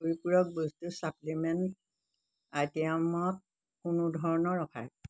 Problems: constant background noise